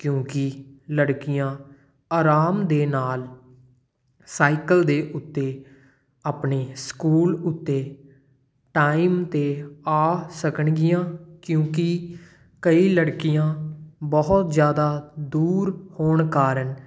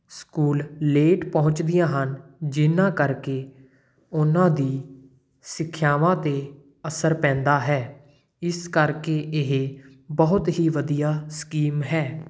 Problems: none marked